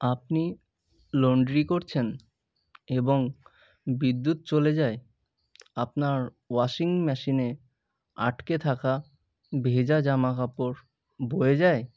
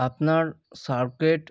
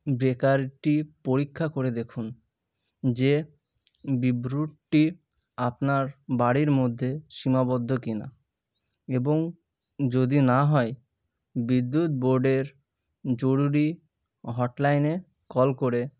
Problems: none marked